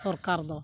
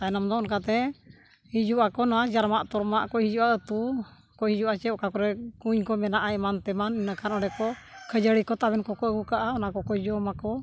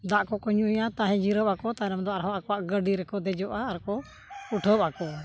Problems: none marked